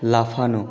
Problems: continuous background conversations